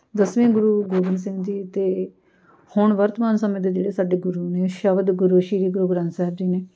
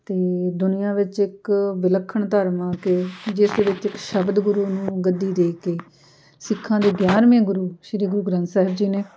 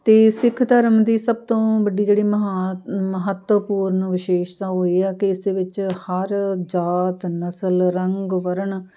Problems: background sounds at intervals, background conversations at intervals